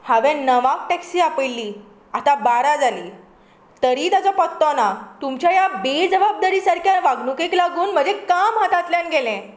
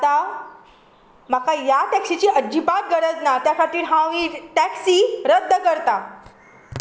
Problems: background sounds at intervals